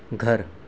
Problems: constant background noise